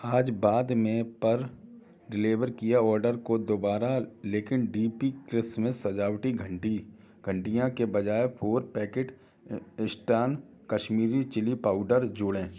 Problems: constant background noise, background conversations at intervals